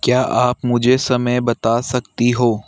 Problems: none marked